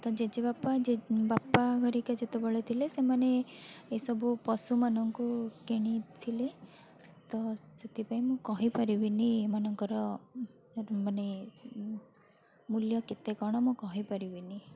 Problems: constant background noise, continuous background conversations